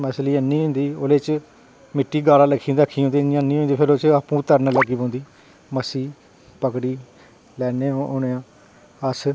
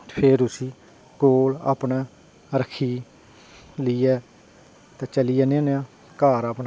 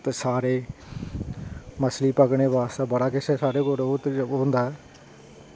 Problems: background sounds at intervals